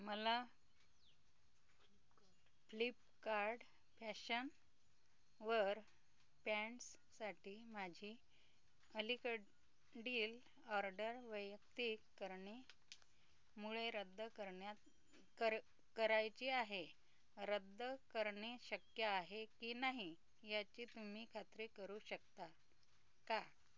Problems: none marked